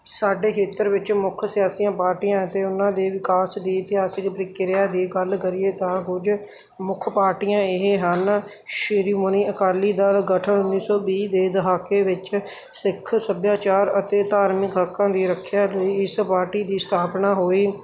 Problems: background sounds at intervals